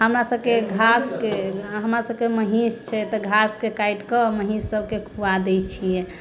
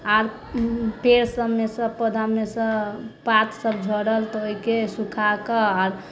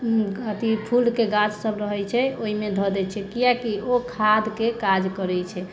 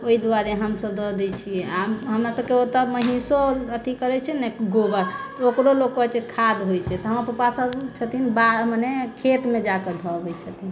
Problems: none marked